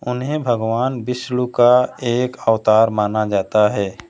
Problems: none marked